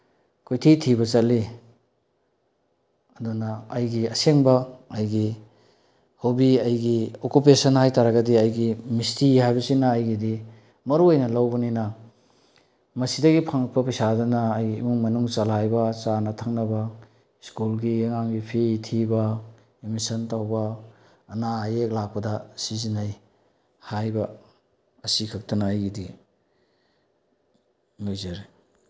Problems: low volume